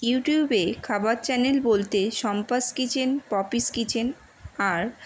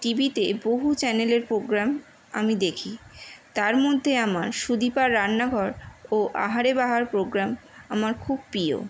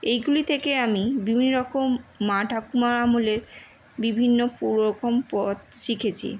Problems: none marked